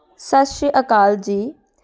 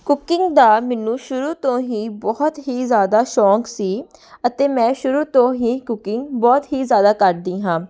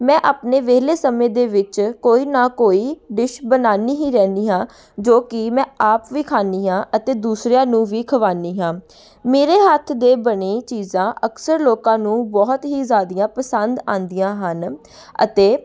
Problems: background sounds at intervals, background conversations at intervals